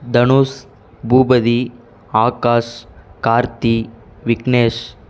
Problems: constant background noise